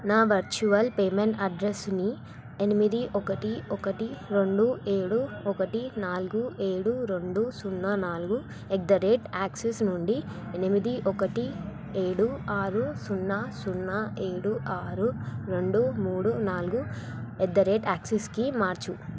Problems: none marked